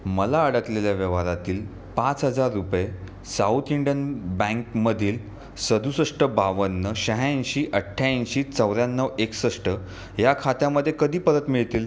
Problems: constant background noise, background conversations at intervals